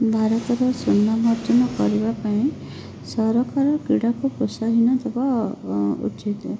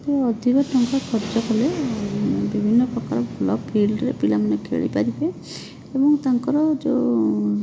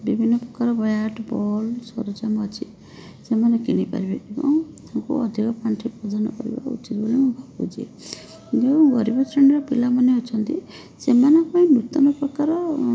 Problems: constant background noise